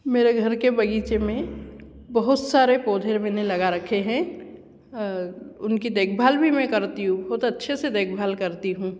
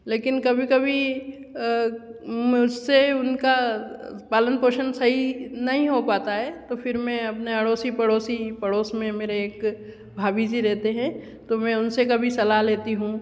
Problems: constant background noise, echo